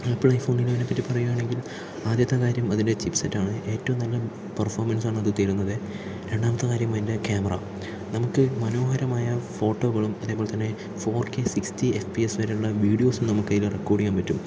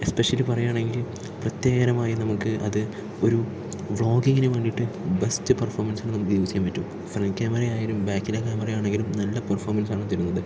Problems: low volume